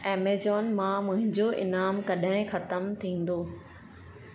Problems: constant background noise, echo